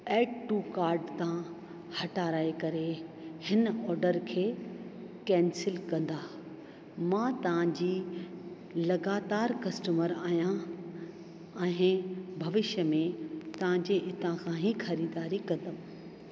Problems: constant background noise, echo